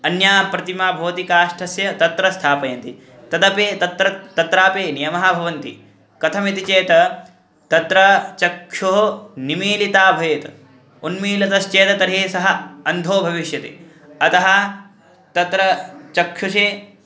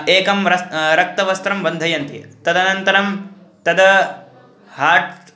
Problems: constant background noise, background conversations at intervals